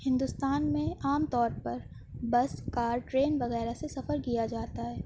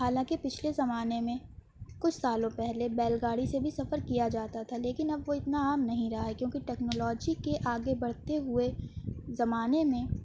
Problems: none marked